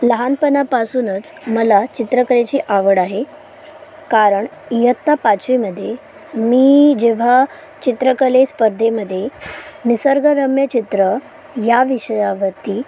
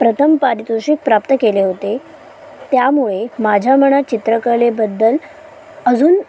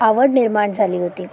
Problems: constant background noise